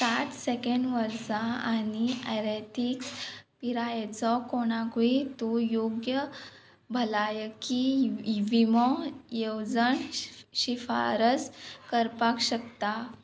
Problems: background sounds at intervals